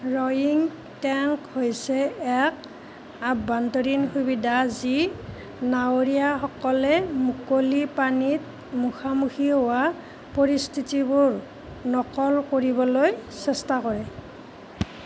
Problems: constant background noise